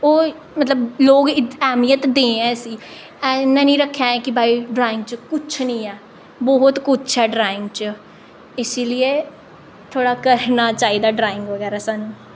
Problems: none marked